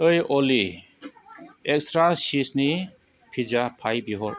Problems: constant background noise